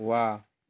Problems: none marked